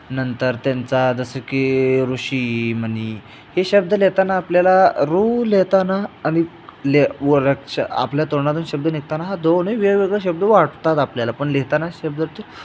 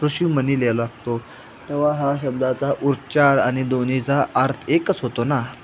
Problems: constant background noise